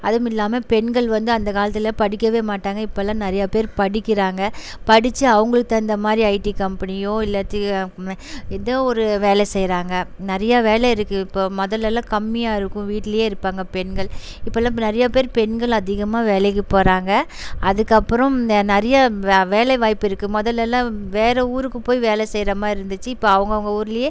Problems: background sounds at intervals